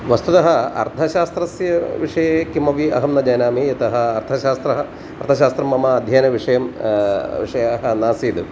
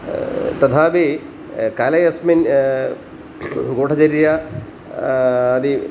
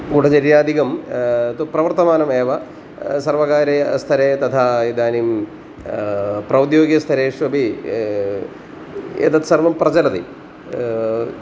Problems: constant background noise